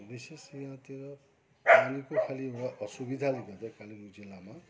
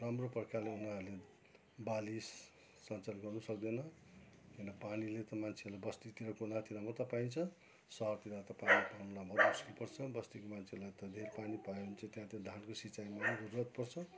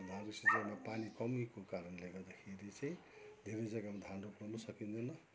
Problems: constant background noise